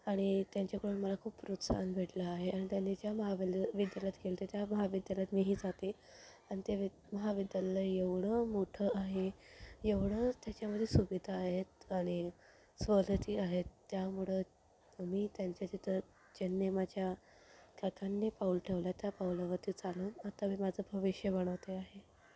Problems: none marked